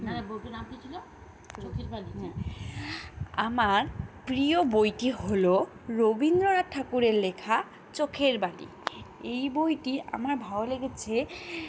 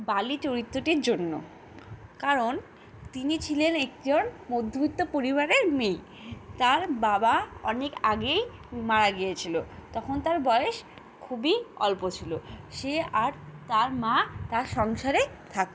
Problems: constant background noise, continuous background conversations